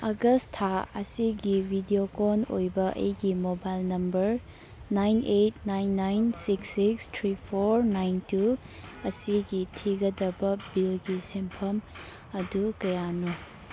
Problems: background sounds at intervals